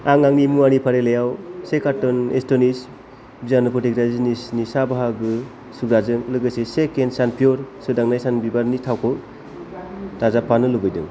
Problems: constant background noise